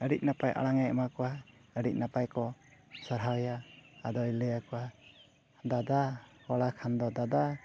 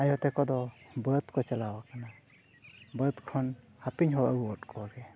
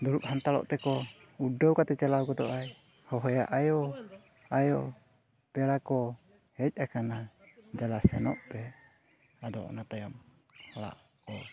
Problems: constant background noise, background conversations at intervals